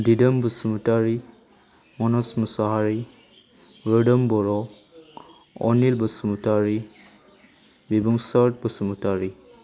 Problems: none marked